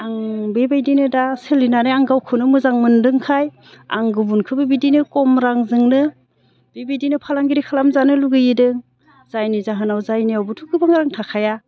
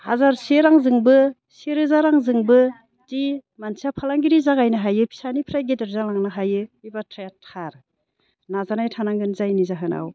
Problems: none marked